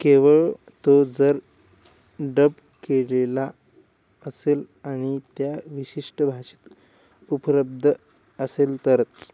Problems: constant background noise